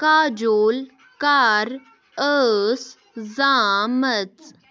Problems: none marked